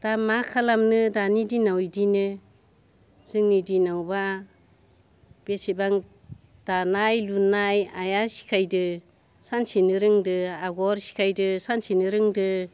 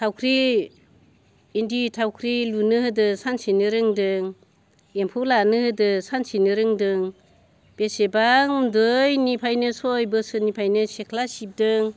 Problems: constant background noise